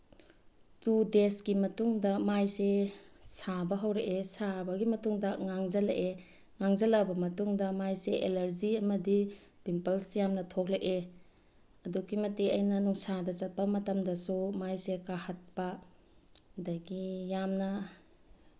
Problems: none marked